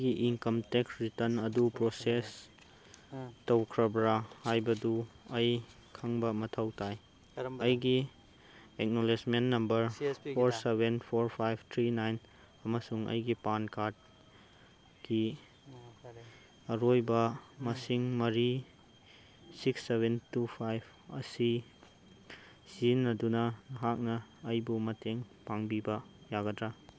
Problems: background sounds at intervals, background conversations at intervals